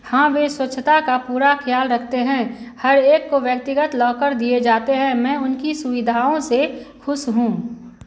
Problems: none marked